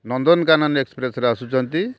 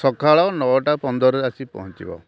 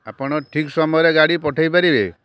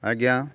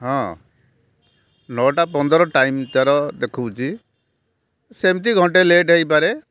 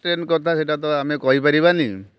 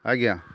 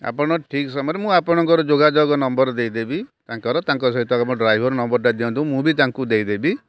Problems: constant background noise